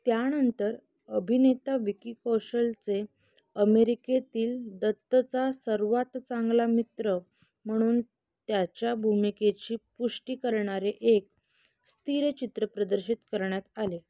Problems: constant background noise